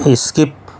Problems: none marked